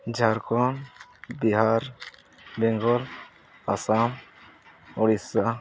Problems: none marked